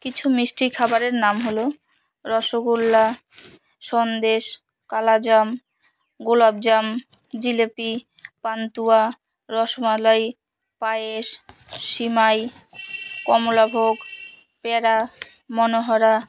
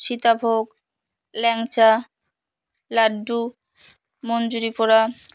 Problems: none marked